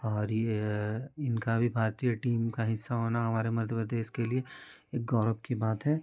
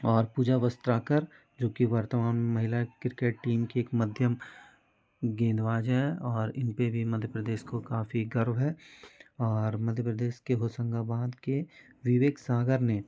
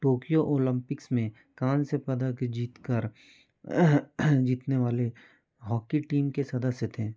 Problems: constant background noise, continuous background conversations